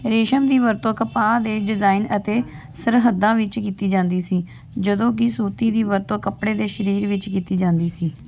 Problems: constant background noise